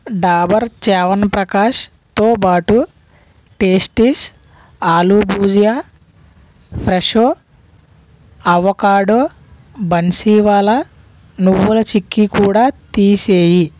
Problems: none marked